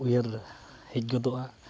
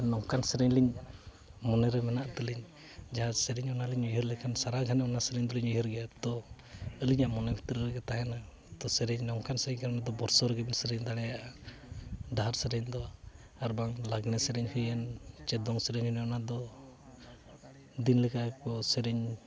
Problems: background sounds at intervals